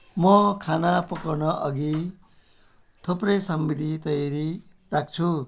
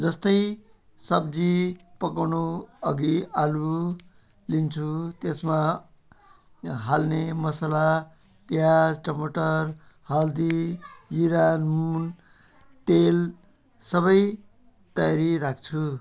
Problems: background sounds at intervals